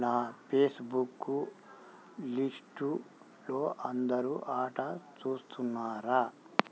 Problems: none marked